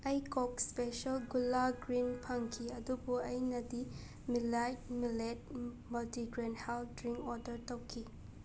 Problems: background sounds at intervals